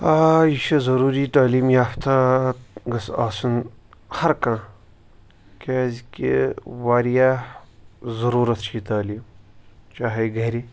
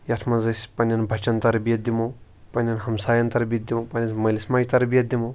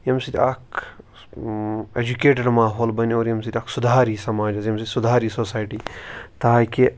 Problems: none marked